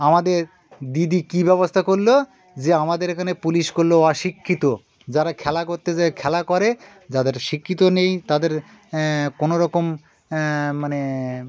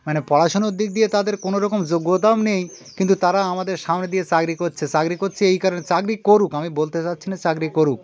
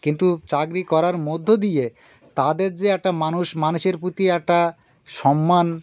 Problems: constant background noise, continuous background conversations